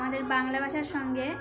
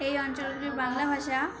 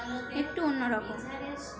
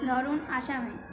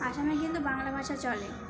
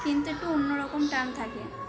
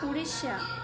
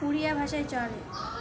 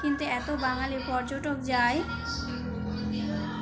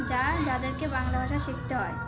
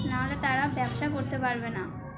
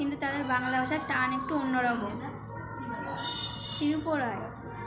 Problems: constant background noise, continuous background conversations